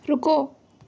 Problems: none marked